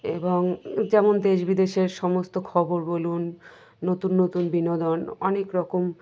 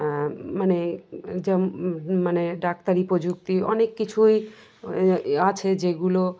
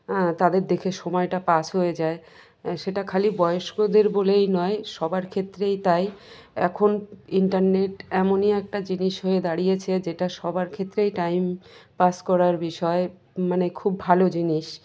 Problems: constant background noise, background conversations at intervals